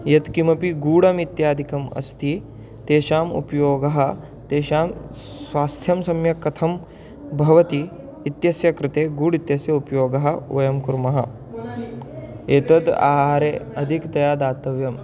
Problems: none marked